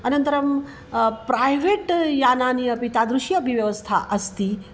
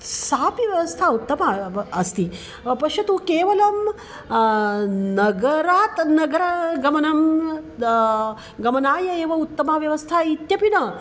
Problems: constant background noise